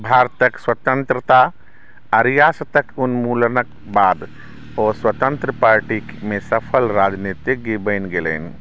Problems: none marked